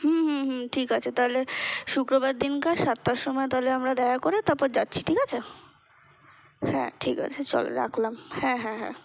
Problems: constant background noise